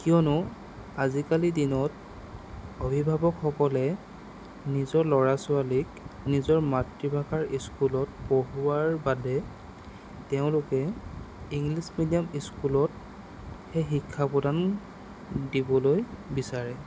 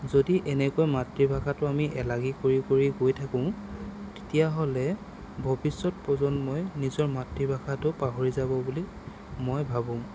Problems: none marked